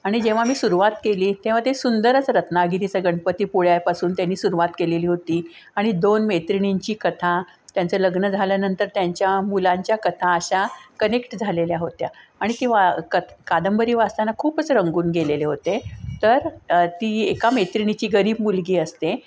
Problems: constant background noise